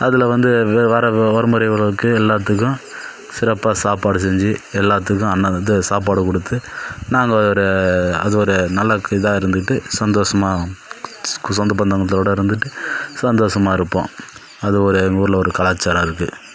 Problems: background sounds at intervals